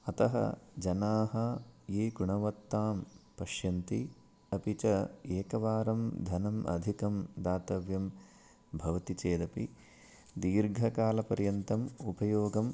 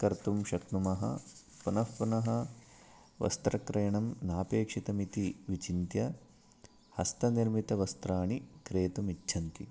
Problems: none marked